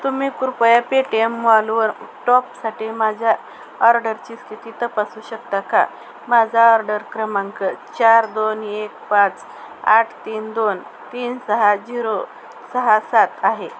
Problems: constant background noise